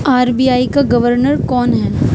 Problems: constant background noise